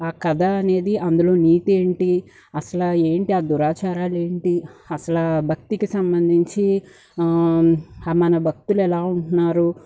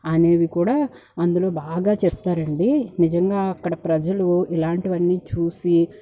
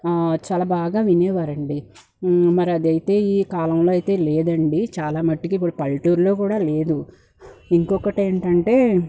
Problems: background sounds at intervals